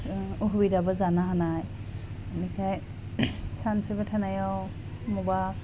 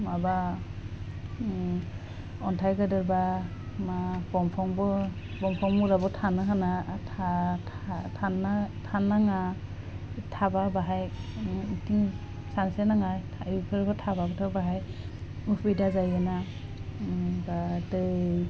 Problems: constant background noise